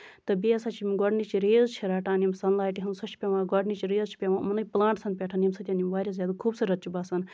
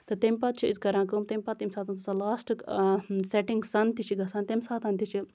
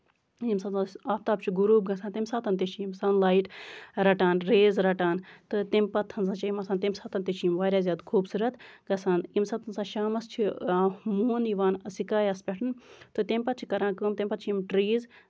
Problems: none marked